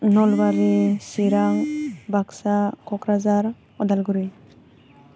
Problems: background sounds at intervals